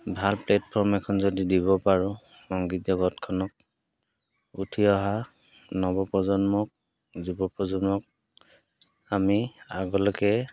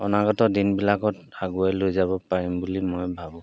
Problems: background sounds at intervals